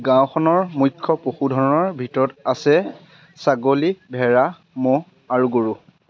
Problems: constant background noise, background conversations at intervals